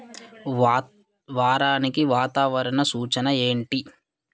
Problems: none marked